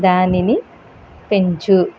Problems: constant background noise